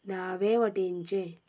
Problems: background conversations at intervals